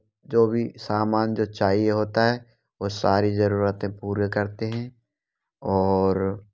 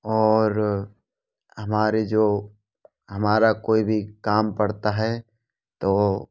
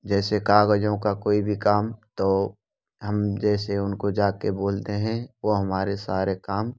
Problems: none marked